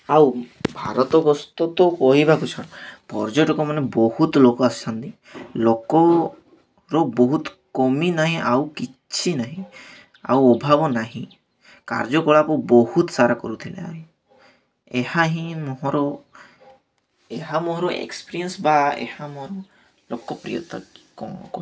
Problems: none marked